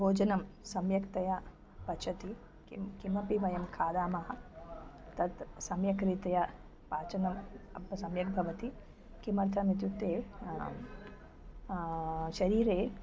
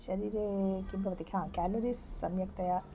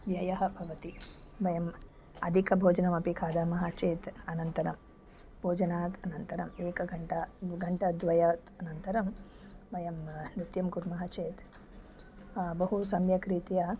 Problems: background sounds at intervals